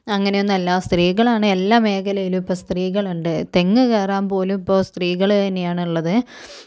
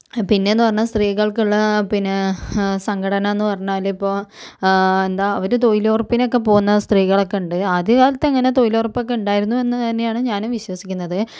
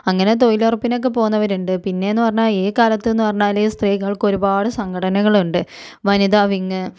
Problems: none marked